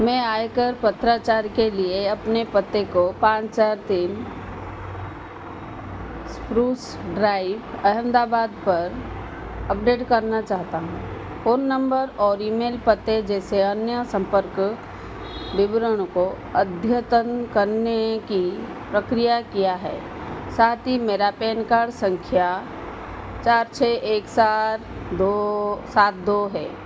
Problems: constant background noise